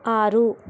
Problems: constant background noise